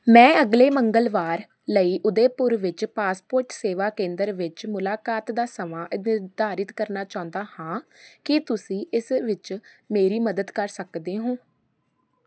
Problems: background sounds at intervals